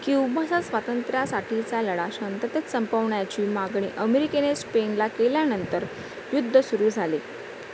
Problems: constant background noise